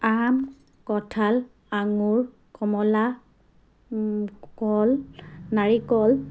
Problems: none marked